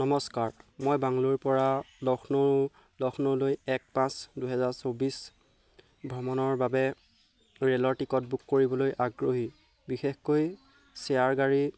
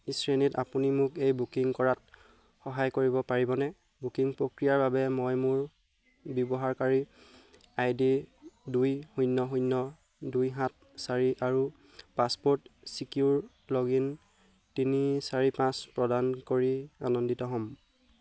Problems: none marked